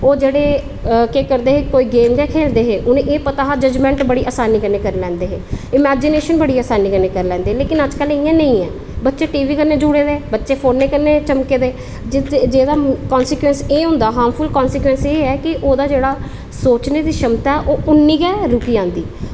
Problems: constant background noise